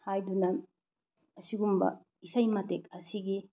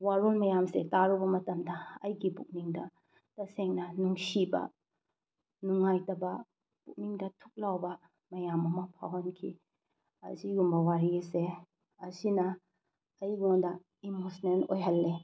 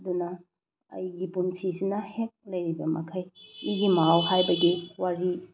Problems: none marked